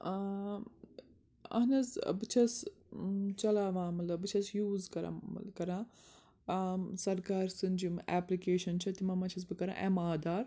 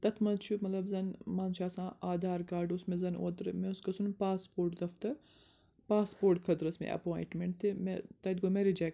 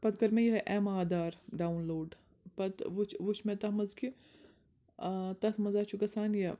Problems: none marked